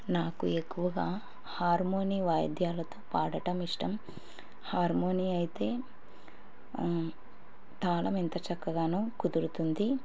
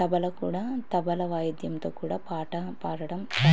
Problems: background sounds at intervals